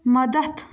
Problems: none marked